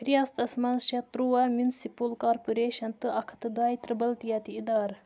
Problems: background conversations at intervals, low volume